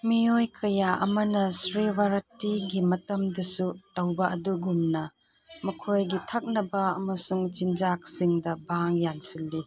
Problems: background sounds at intervals